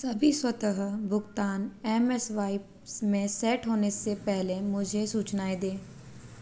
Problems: background sounds at intervals